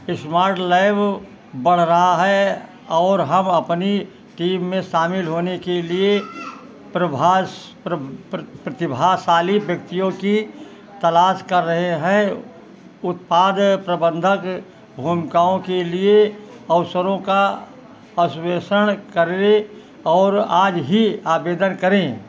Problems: constant background noise